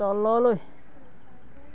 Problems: none marked